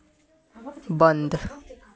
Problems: constant background noise